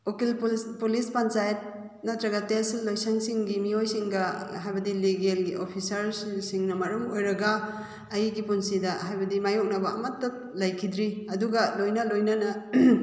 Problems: none marked